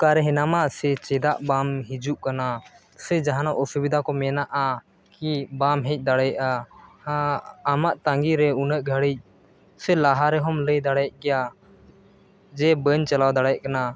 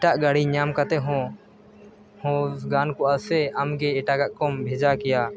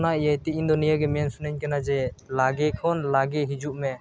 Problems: background sounds at intervals